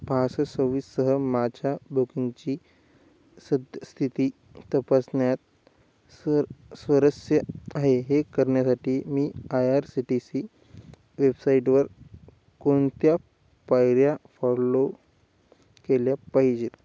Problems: none marked